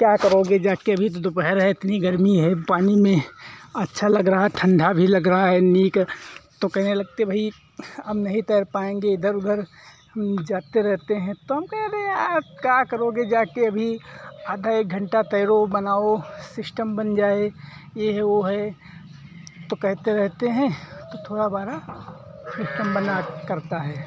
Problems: constant background noise